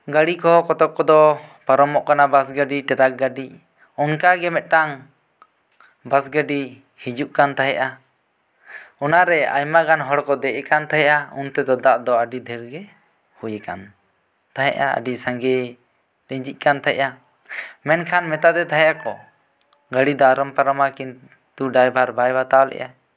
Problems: none marked